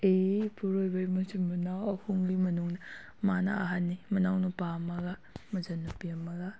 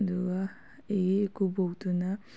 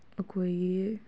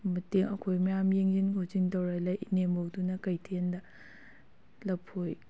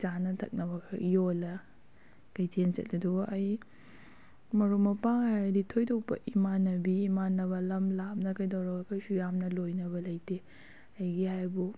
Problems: none marked